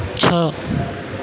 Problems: none marked